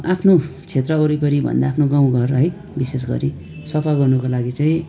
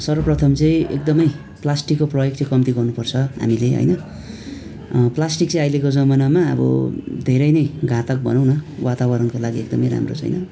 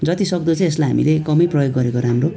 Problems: constant background noise